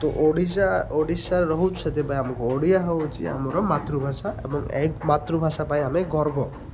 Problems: constant background noise